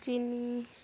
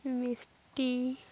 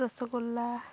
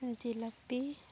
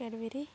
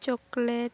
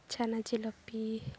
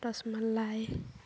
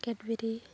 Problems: none marked